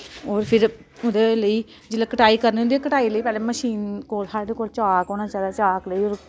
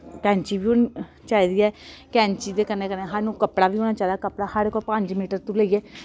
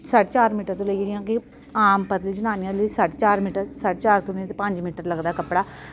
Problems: constant background noise